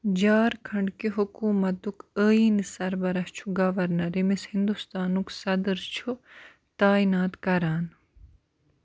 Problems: background sounds at intervals